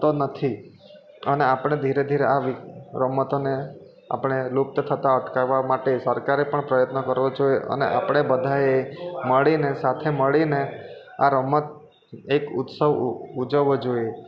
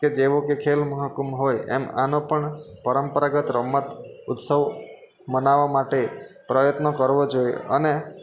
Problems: constant background noise